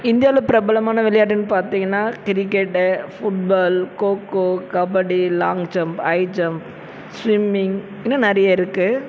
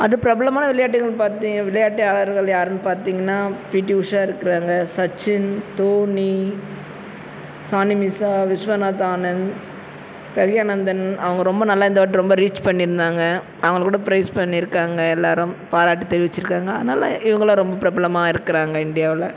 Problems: constant background noise